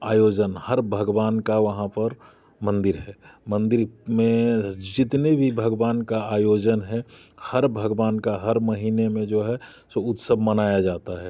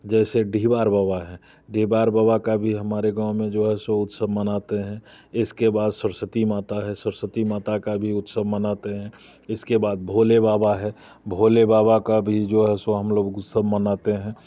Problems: constant background noise, background conversations at intervals